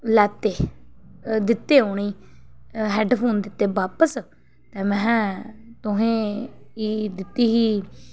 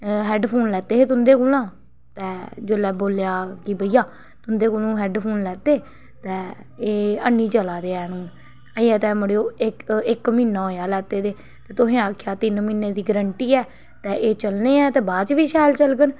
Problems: background sounds at intervals